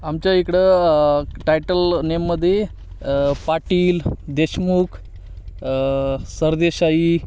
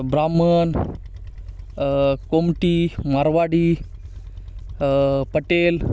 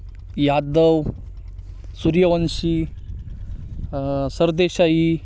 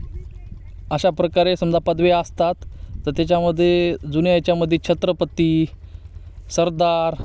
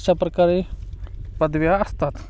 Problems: constant background noise, continuous background conversations